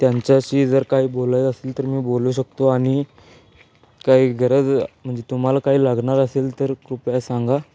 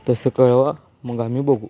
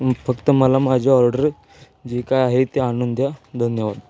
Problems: constant background noise, continuous background conversations